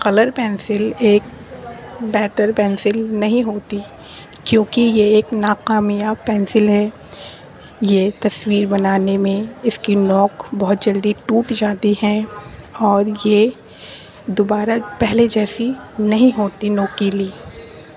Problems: constant background noise